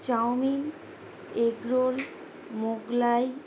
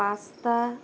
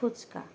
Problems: constant background noise